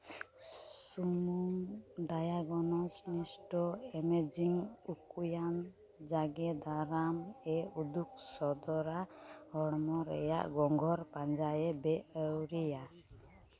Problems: none marked